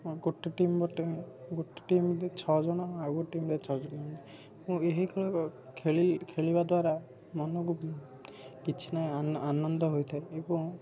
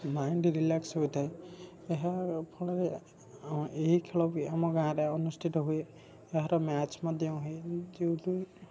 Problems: background sounds at intervals, background conversations at intervals, low volume